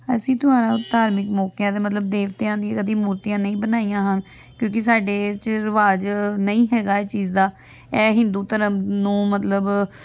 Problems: continuous background conversations